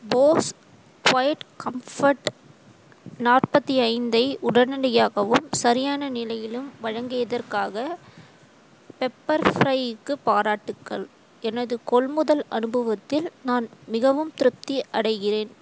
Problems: constant background noise